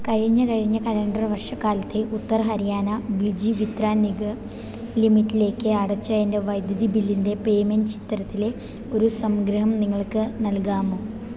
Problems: background sounds at intervals